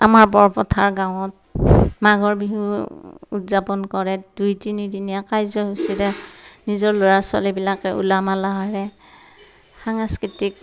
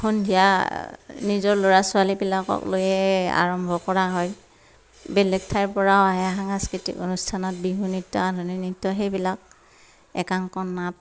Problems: none marked